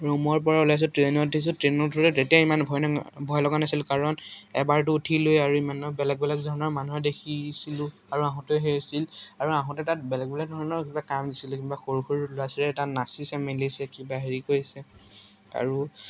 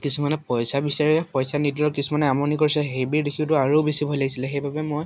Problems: constant background noise, background conversations at intervals